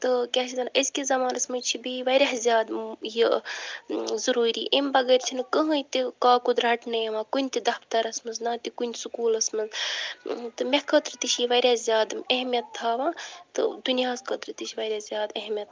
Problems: background sounds at intervals